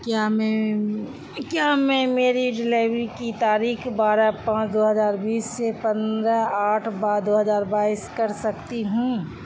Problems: constant background noise